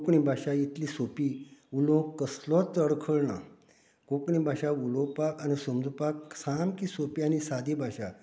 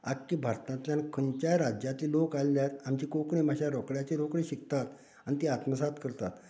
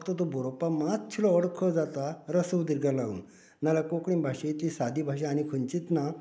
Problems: background conversations at intervals